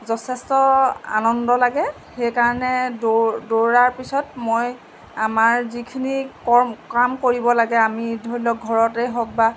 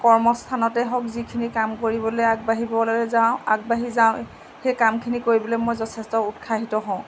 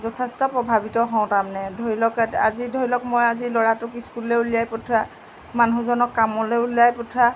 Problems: constant background noise